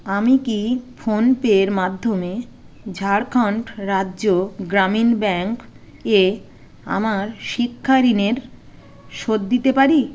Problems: none marked